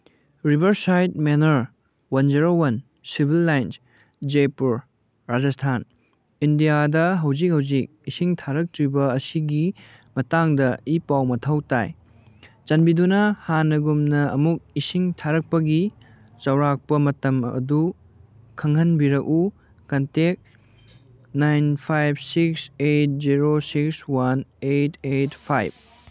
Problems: background sounds at intervals